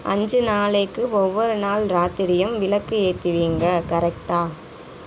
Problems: background sounds at intervals